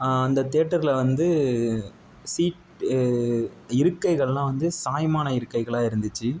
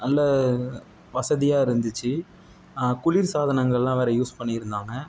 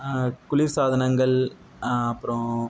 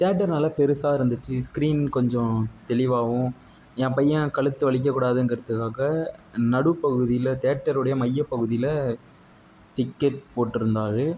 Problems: none marked